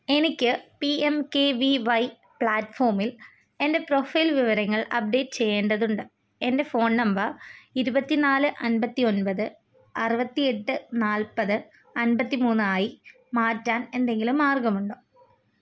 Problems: none marked